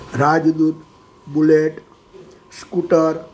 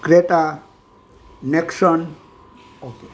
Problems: background conversations at intervals